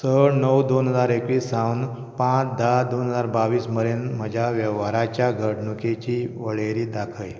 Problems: background sounds at intervals